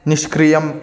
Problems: continuous background conversations